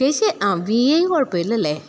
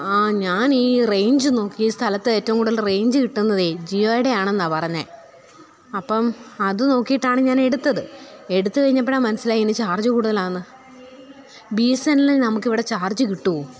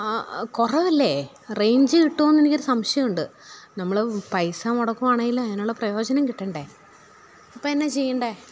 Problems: none marked